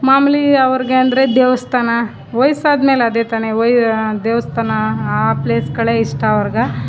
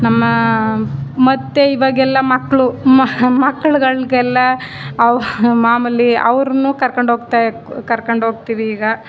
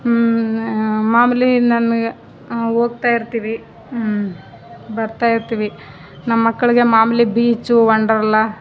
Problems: none marked